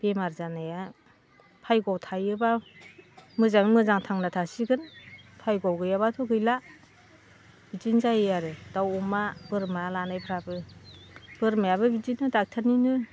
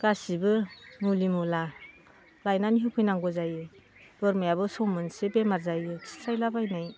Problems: constant background noise